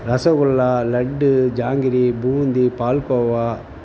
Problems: none marked